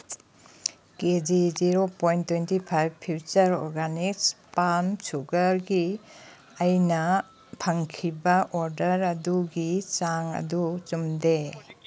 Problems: none marked